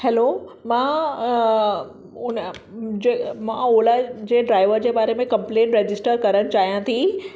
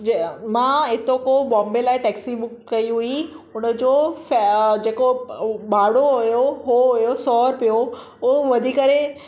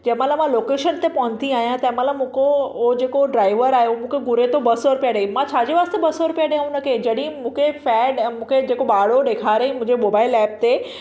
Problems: echo